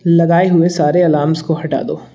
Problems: constant background noise